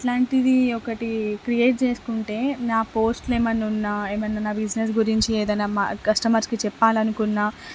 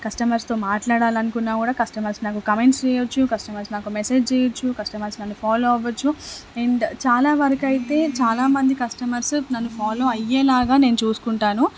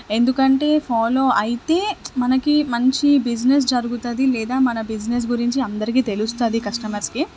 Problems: none marked